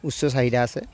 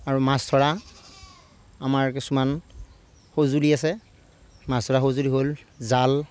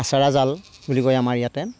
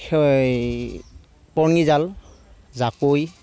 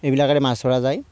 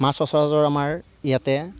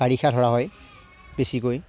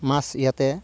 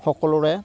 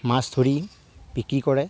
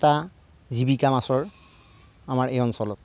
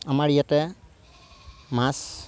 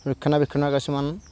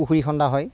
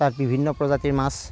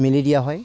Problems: constant background noise